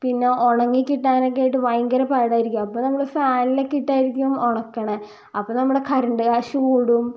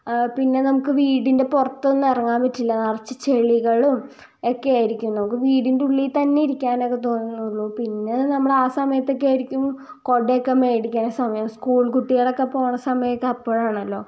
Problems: low volume